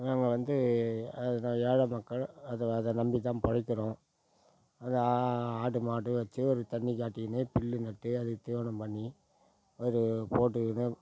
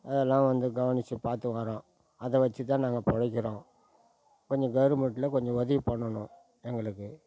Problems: background sounds at intervals